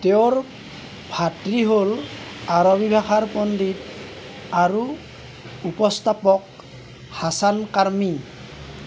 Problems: constant background noise